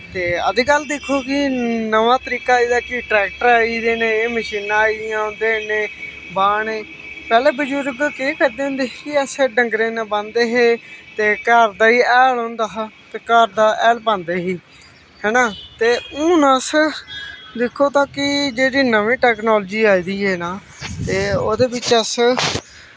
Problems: constant background noise